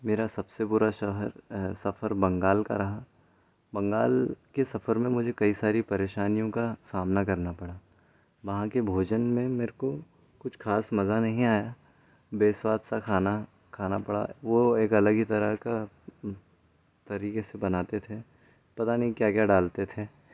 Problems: background sounds at intervals